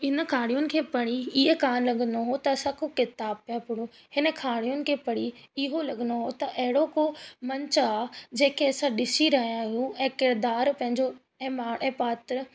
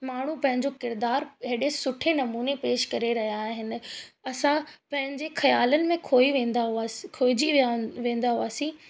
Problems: constant background noise, echo